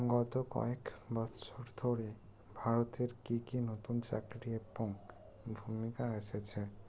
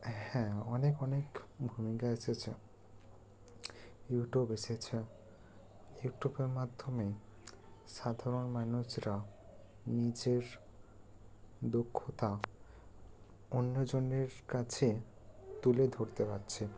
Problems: low volume